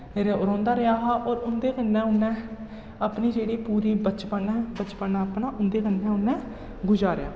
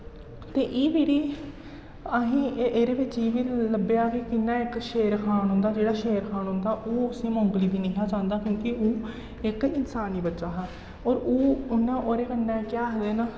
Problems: echo, low volume